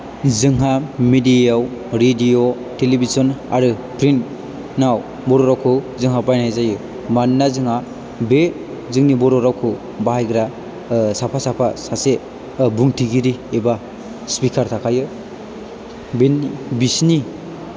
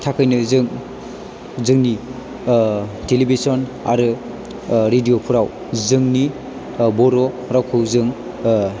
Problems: constant background noise